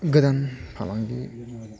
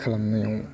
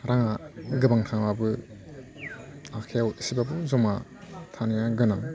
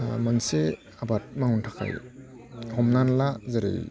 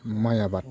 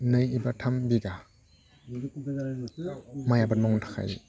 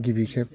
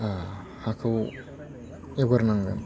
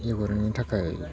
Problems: constant background noise